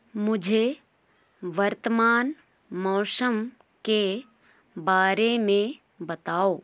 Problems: none marked